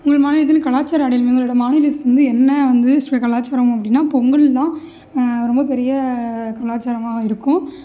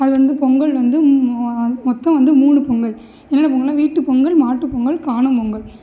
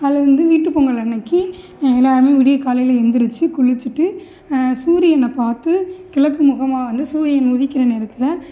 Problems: none marked